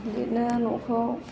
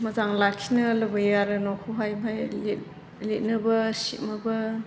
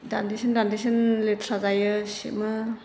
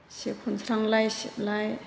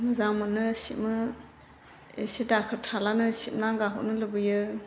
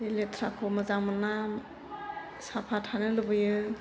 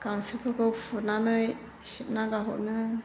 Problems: constant background noise